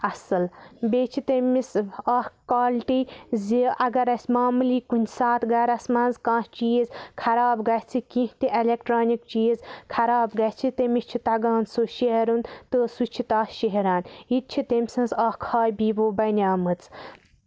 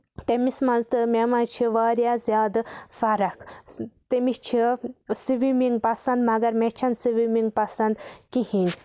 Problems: background sounds at intervals